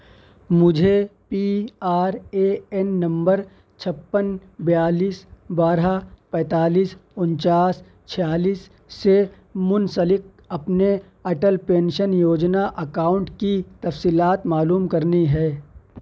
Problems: none marked